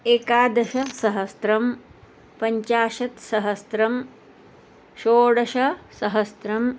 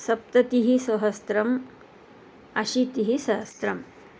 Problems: none marked